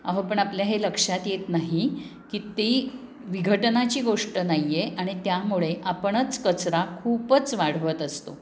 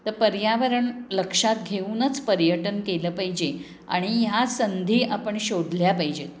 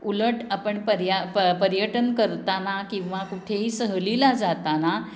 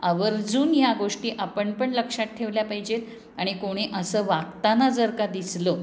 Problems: none marked